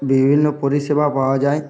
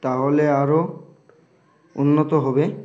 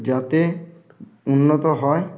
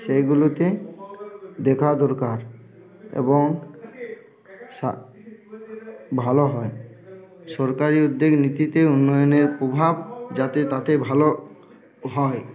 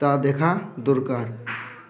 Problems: constant background noise, background conversations at intervals